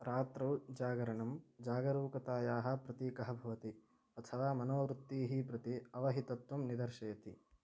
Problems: low volume